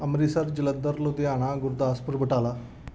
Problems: background sounds at intervals